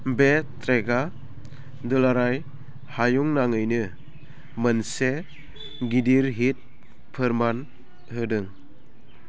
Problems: none marked